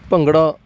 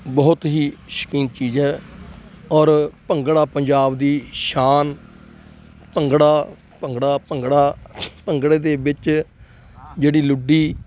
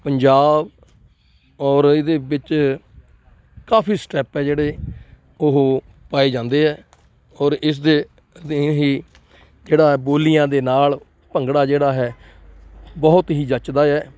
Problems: none marked